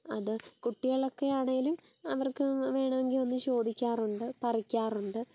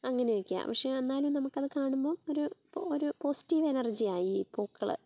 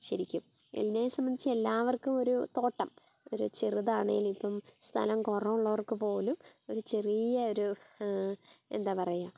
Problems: background sounds at intervals